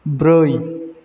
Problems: constant background noise